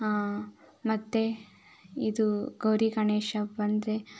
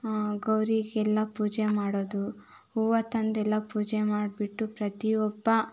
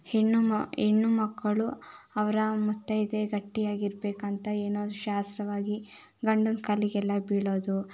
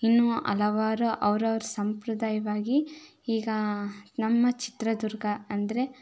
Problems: none marked